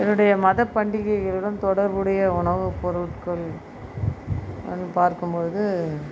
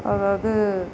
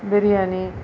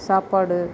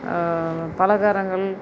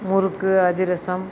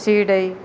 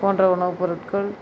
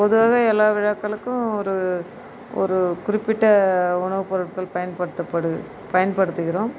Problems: background sounds at intervals